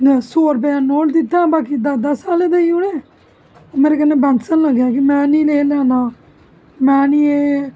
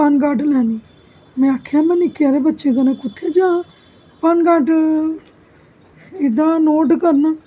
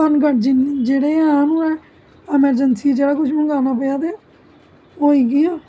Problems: constant background noise